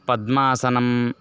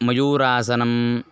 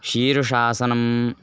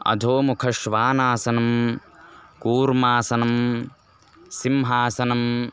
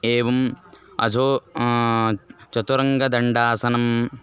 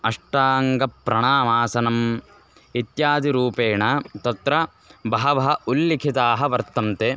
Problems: constant background noise